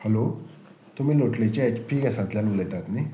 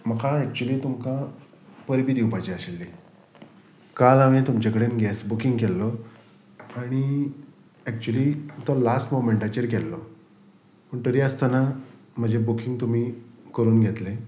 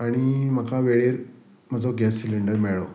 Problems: background sounds at intervals